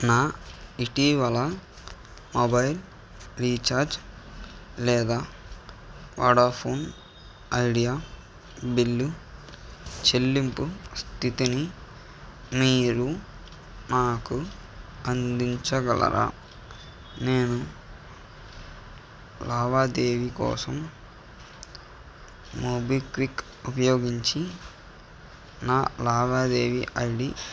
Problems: none marked